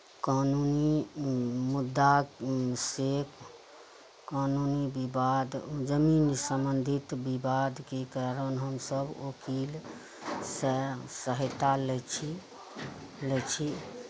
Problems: none marked